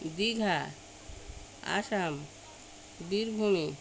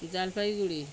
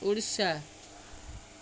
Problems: background sounds at intervals, continuous background conversations